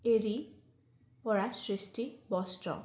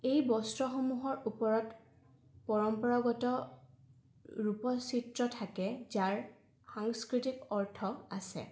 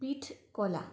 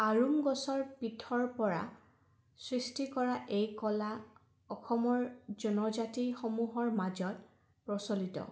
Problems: background sounds at intervals